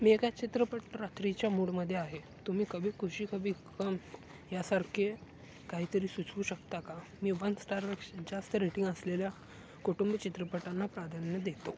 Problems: constant background noise, background conversations at intervals